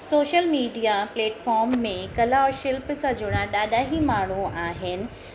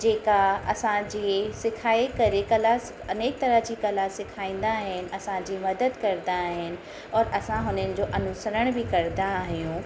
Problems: constant background noise, echo